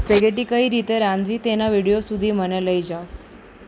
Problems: none marked